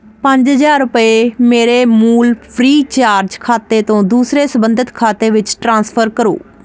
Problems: constant background noise